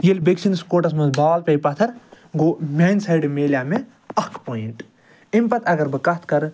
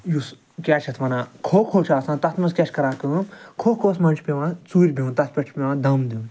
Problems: none marked